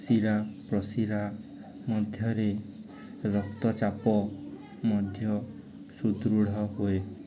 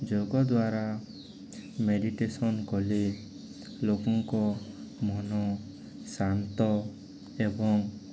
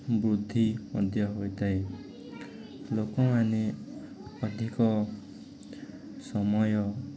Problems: background sounds at intervals, continuous background conversations